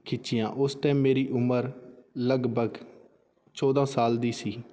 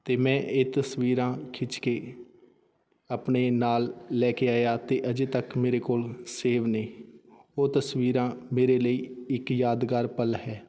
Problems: background sounds at intervals